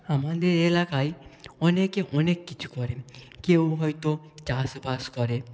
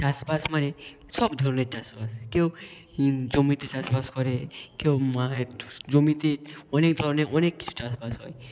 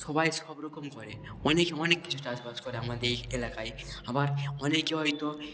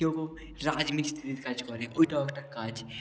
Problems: none marked